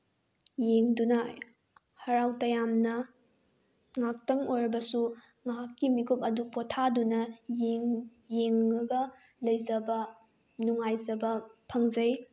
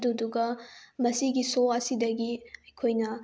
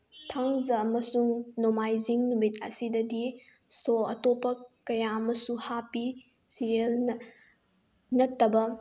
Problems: none marked